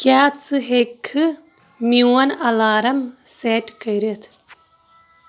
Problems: constant background noise